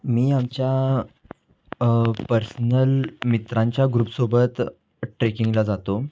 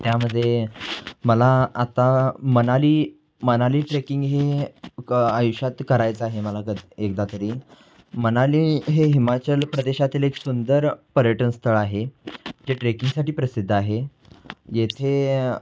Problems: none marked